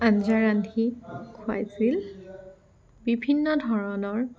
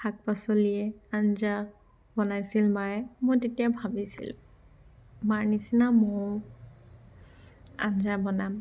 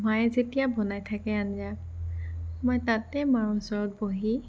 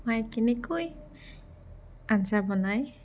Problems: none marked